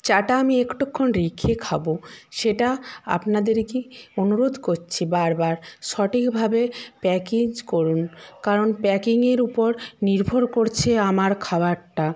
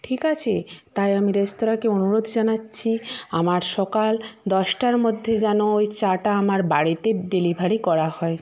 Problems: background sounds at intervals